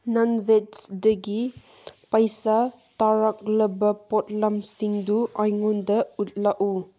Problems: none marked